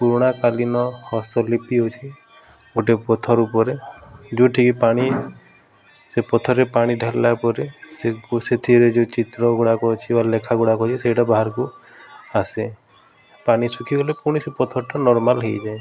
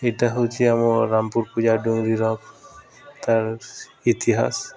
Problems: constant background noise